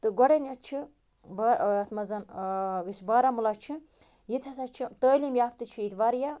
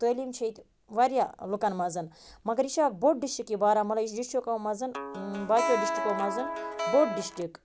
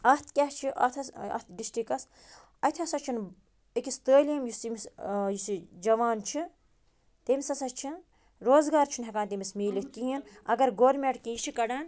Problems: background sounds at intervals